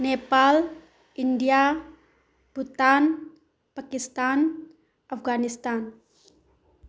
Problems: background sounds at intervals